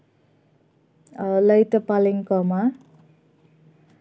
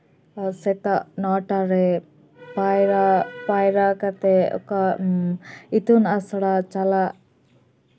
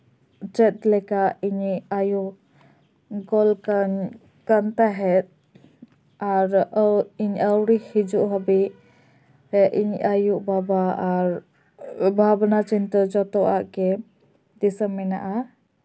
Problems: none marked